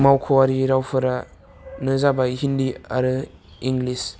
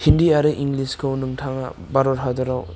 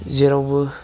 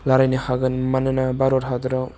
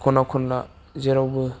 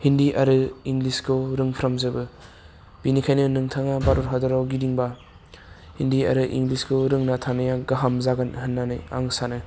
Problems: none marked